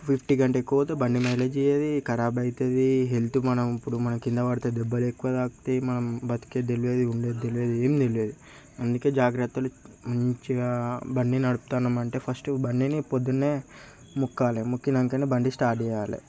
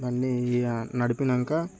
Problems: constant background noise, background conversations at intervals